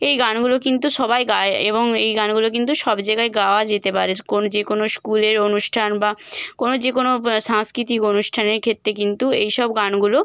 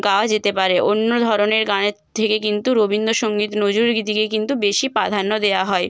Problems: constant background noise